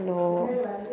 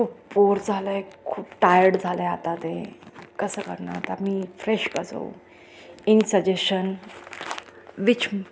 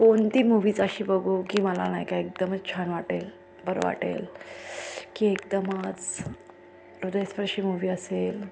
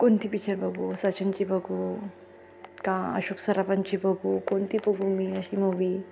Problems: none marked